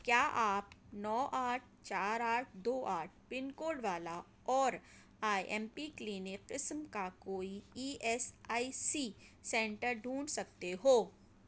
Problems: none marked